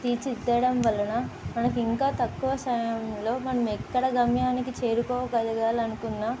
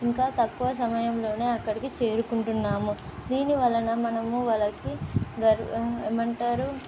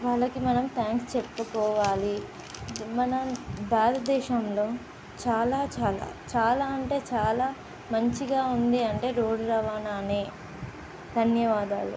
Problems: constant background noise